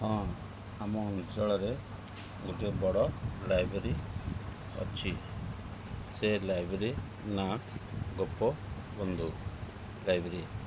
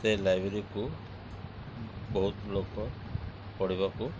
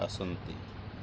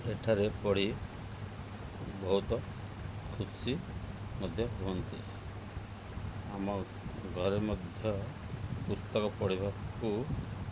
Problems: none marked